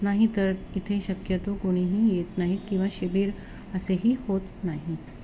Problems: none marked